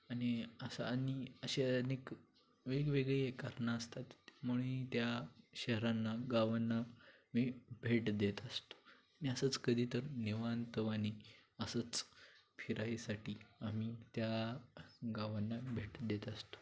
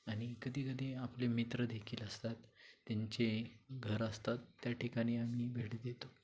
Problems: constant background noise